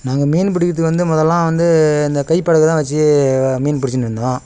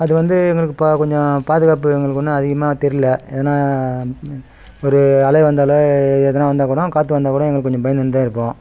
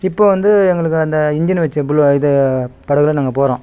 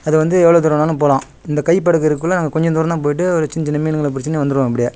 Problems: background sounds at intervals